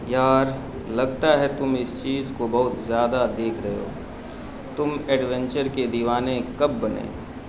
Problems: constant background noise